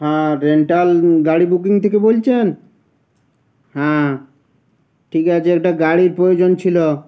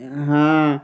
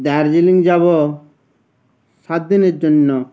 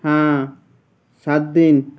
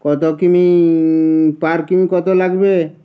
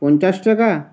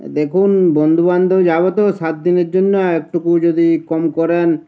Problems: background sounds at intervals